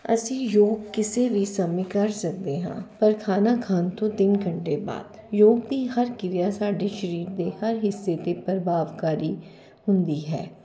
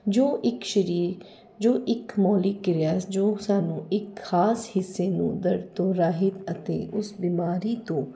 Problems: none marked